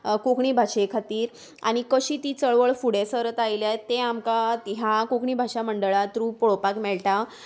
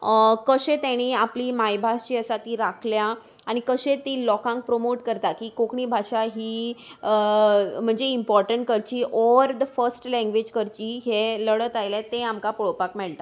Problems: none marked